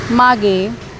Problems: none marked